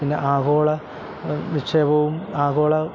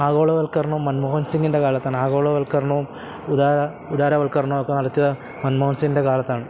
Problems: constant background noise